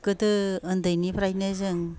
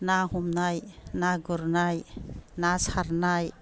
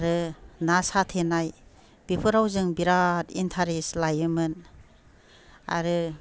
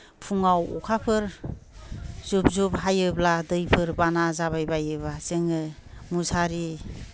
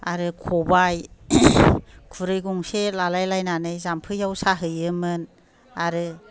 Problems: low volume